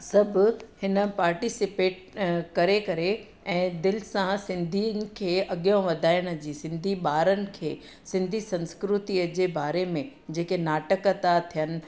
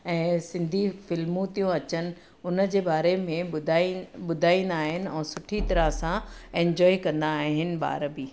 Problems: none marked